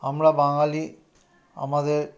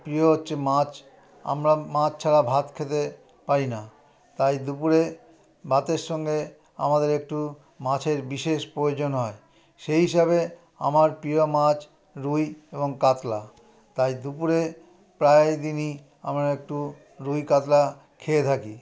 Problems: continuous background conversations